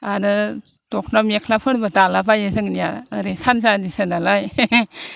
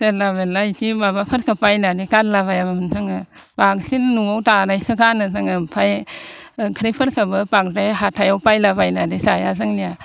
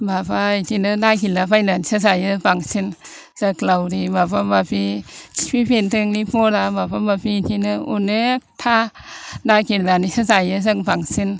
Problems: constant background noise